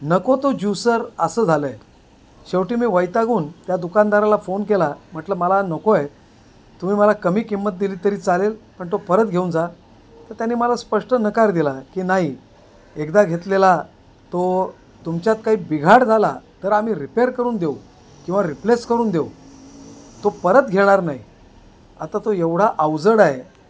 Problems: constant background noise, background conversations at intervals